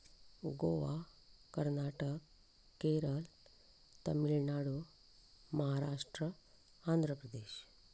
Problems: none marked